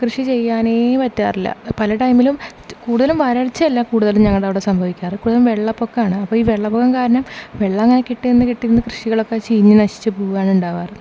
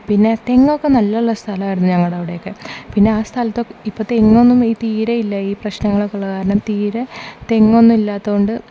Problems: none marked